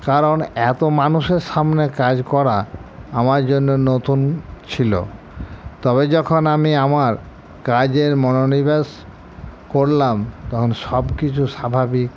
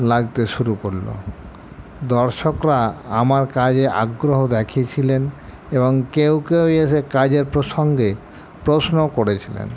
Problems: constant background noise